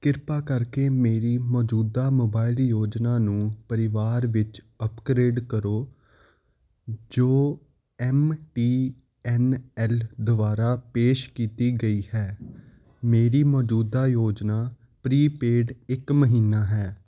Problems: constant background noise